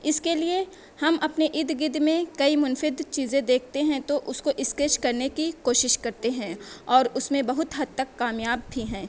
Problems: none marked